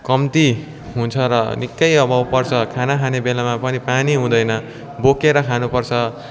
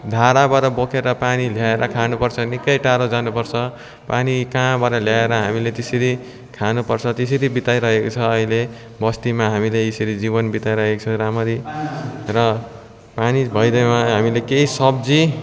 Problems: none marked